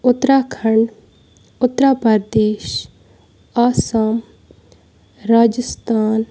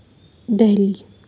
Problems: none marked